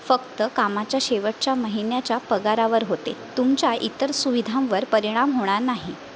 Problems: none marked